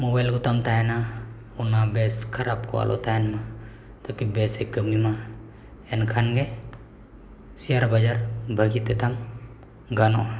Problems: background sounds at intervals, echo